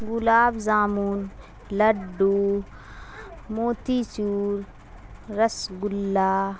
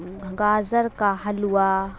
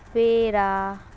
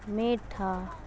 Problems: constant background noise